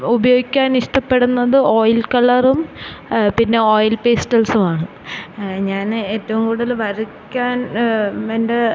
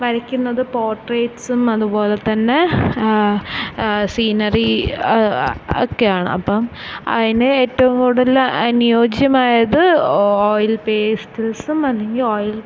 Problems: constant background noise